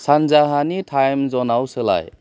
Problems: low volume